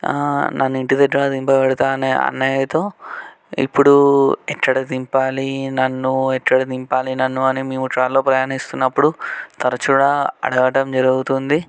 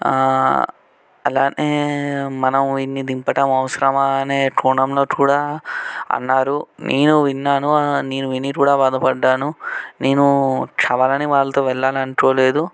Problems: none marked